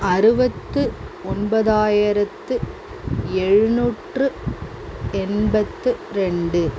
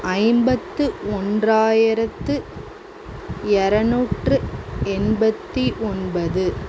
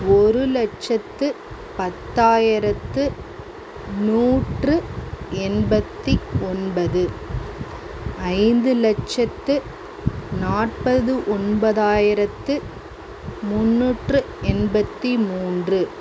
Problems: constant background noise